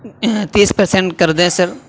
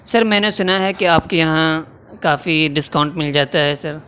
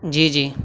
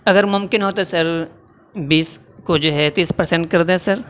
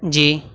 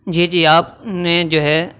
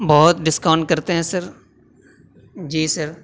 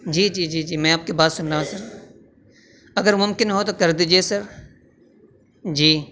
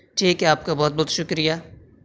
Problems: constant background noise